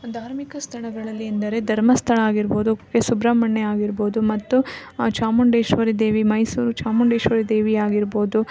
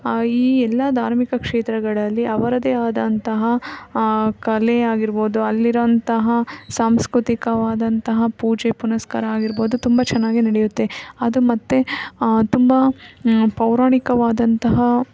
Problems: none marked